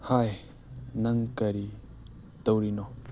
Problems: background sounds at intervals